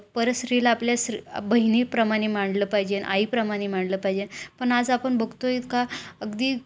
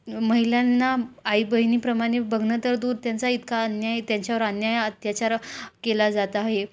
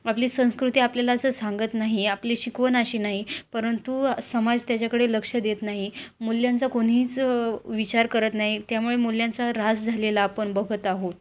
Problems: constant background noise